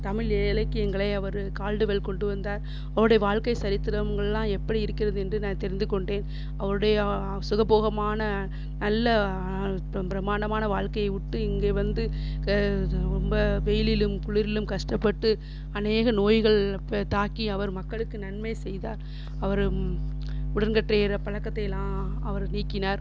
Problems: constant background noise